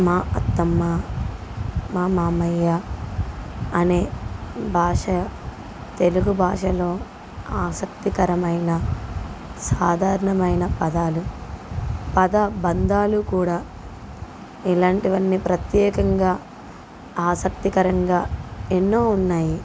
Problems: none marked